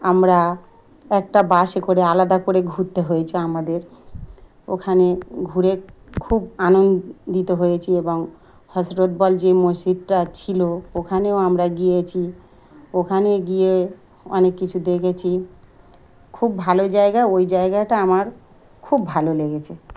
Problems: background sounds at intervals